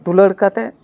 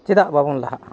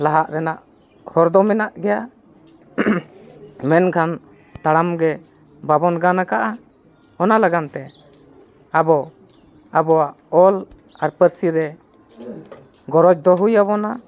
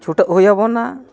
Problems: none marked